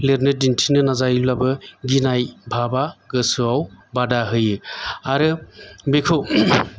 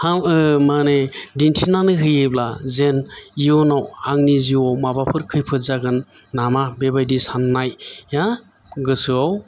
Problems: none marked